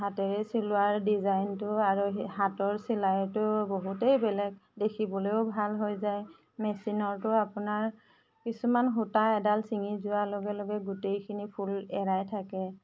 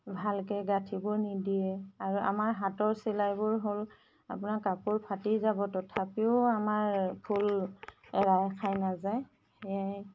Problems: none marked